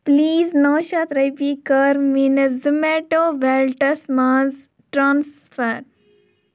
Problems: none marked